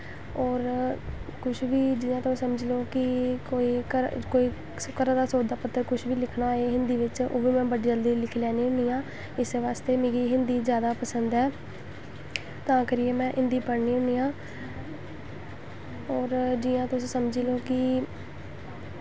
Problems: constant background noise